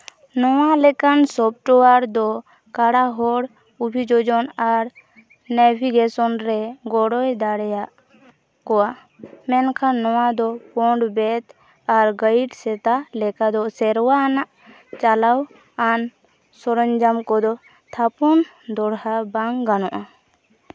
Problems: background sounds at intervals